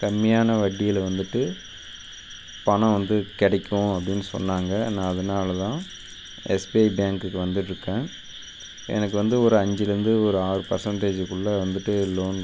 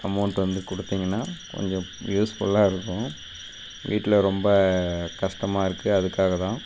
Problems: constant background noise